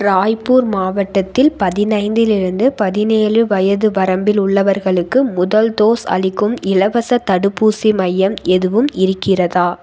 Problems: none marked